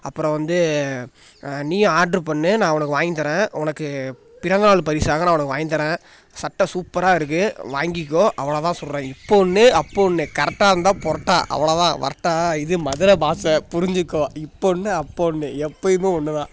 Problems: background sounds at intervals